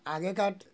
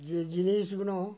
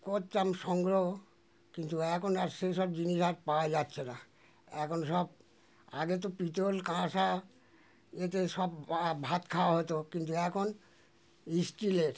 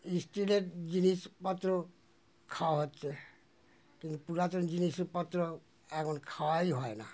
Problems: constant background noise